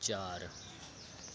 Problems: none marked